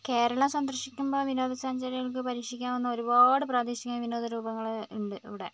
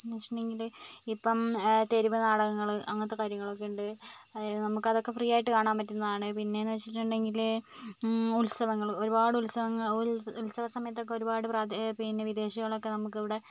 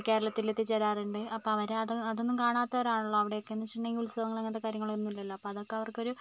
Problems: none marked